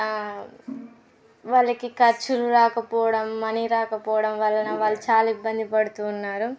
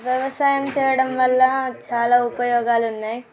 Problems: background sounds at intervals, background conversations at intervals